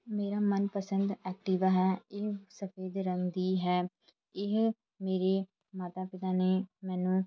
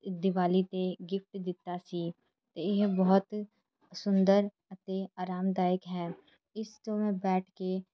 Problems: background sounds at intervals, background conversations at intervals